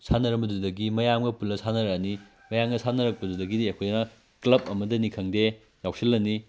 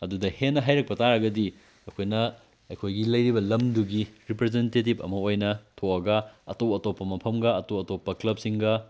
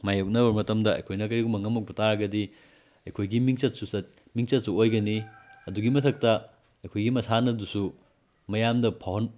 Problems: none marked